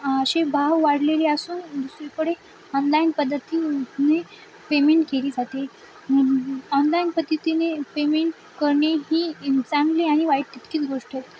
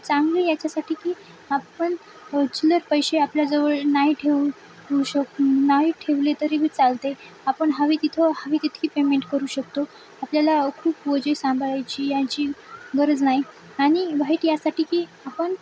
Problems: constant background noise, background conversations at intervals